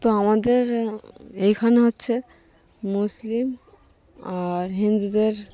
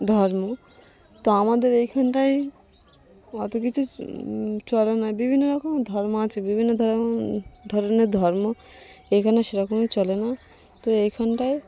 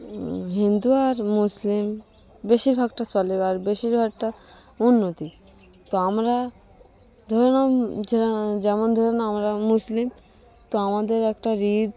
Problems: none marked